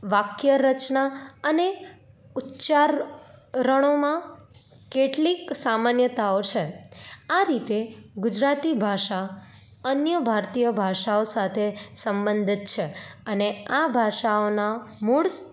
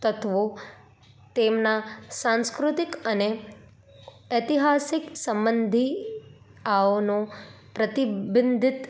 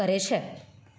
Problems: none marked